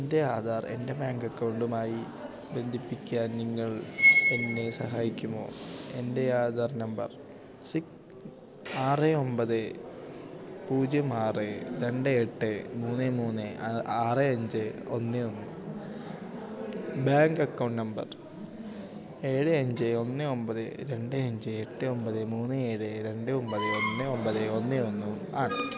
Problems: background sounds at intervals